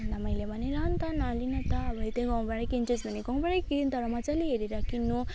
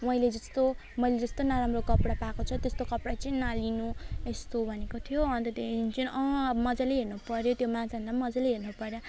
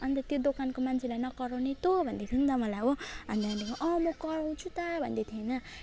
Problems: none marked